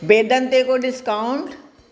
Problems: none marked